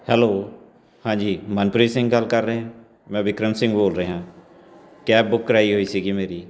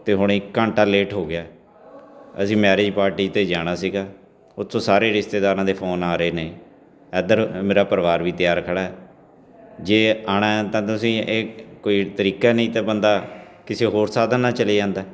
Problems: background sounds at intervals